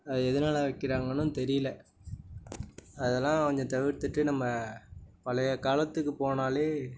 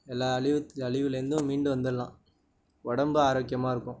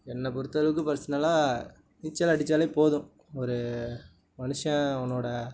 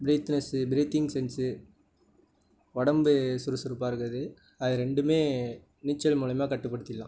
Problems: none marked